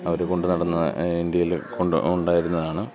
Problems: none marked